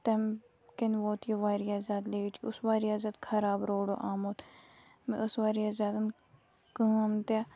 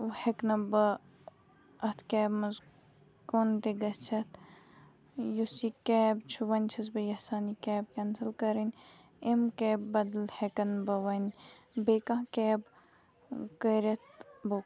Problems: background sounds at intervals